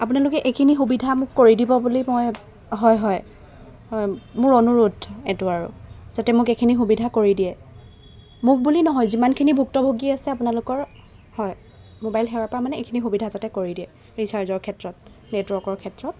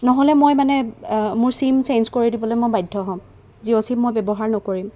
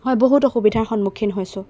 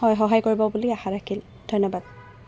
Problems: background sounds at intervals